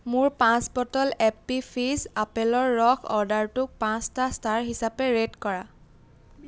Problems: none marked